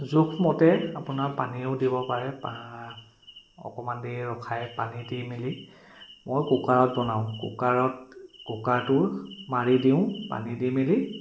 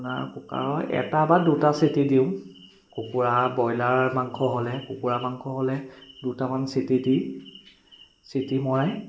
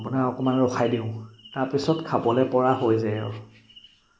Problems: constant background noise, echo